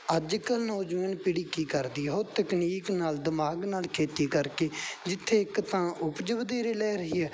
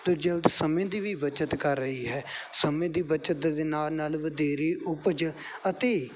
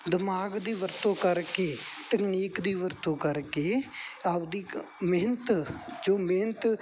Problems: none marked